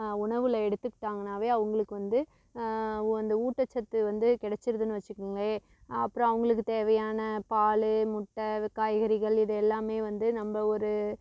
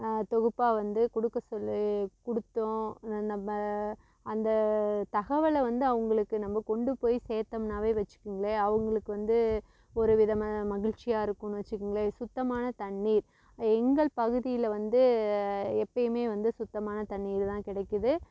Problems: constant background noise